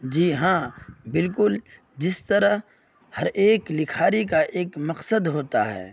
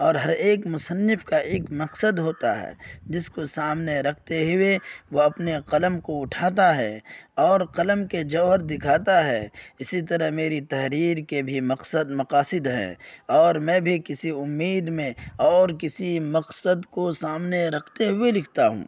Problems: none marked